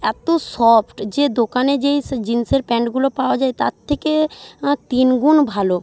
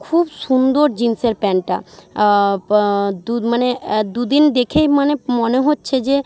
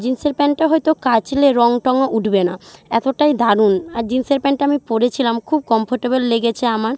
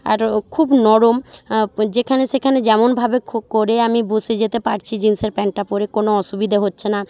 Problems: none marked